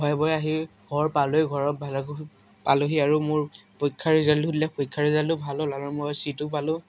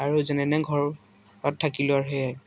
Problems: constant background noise, background conversations at intervals